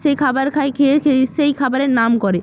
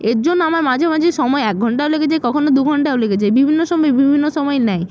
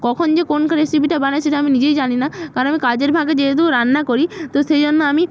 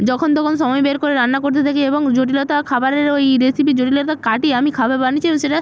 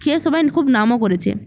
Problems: none marked